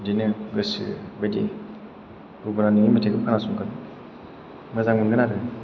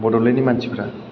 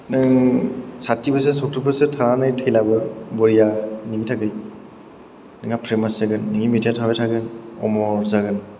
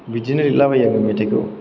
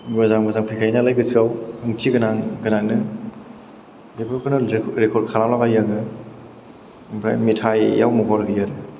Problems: background sounds at intervals